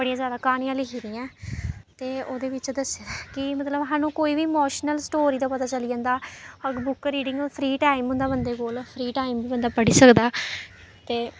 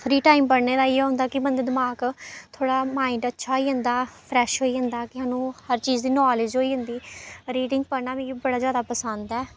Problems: none marked